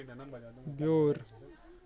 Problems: constant background noise, continuous background conversations